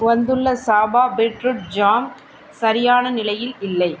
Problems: constant background noise